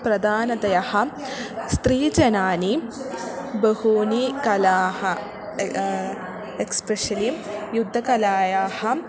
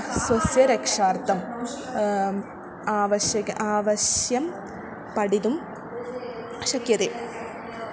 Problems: none marked